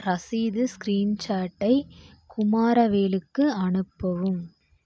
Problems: constant background noise